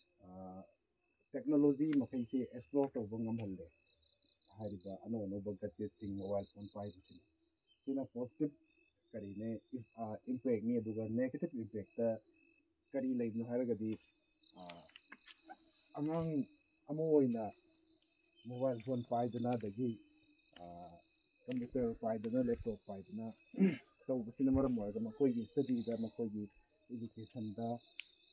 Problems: background sounds at intervals